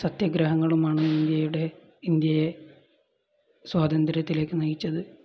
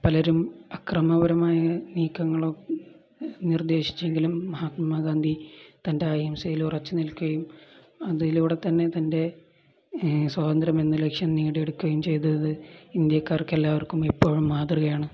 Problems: none marked